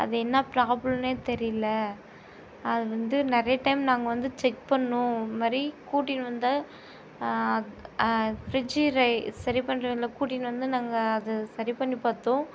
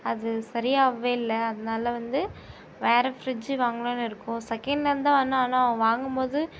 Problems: constant background noise